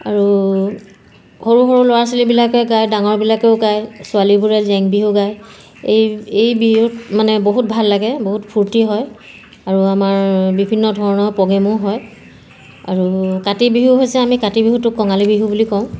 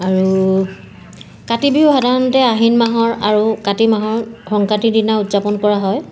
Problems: background sounds at intervals